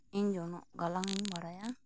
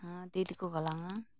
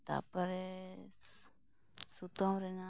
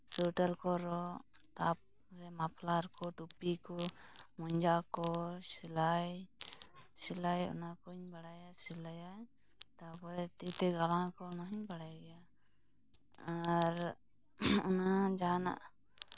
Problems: constant background noise, low volume